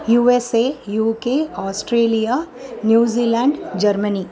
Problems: continuous background conversations